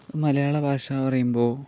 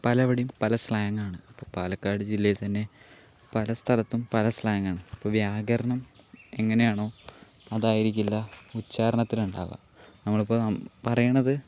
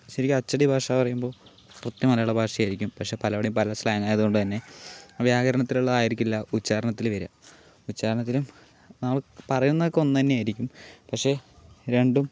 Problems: none marked